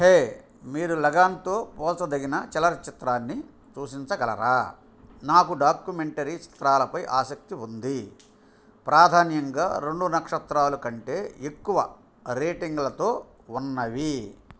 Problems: none marked